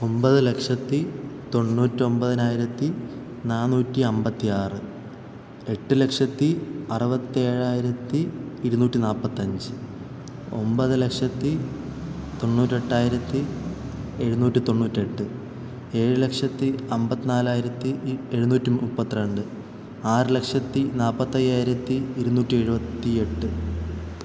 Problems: constant background noise